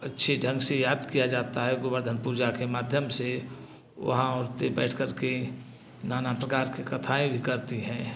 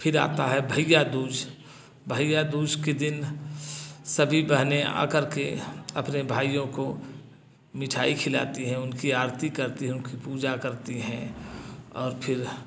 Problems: none marked